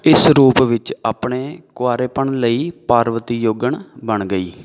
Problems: background conversations at intervals